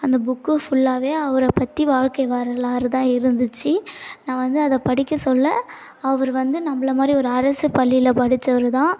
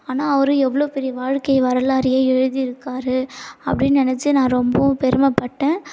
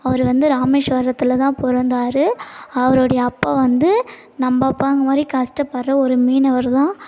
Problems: none marked